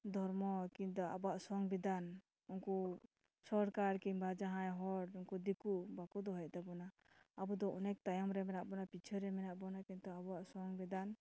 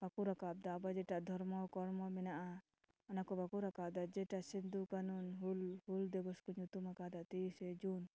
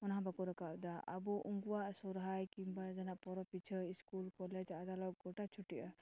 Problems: none marked